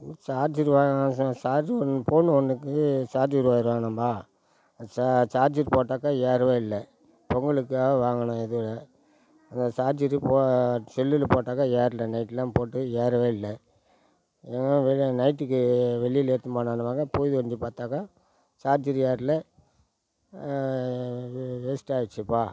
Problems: background sounds at intervals